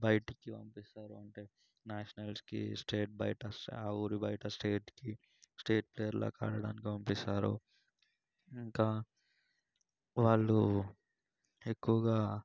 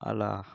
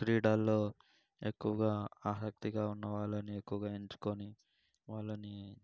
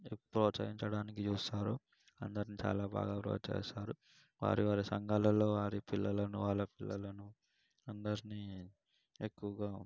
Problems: background sounds at intervals, low volume